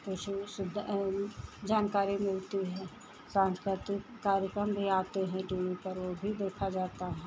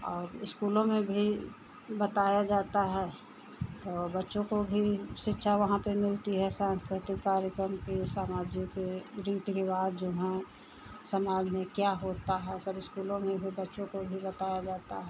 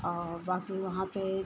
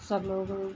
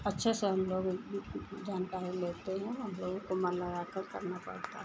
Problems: none marked